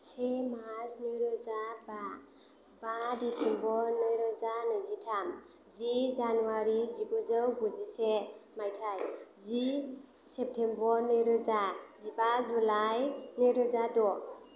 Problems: low volume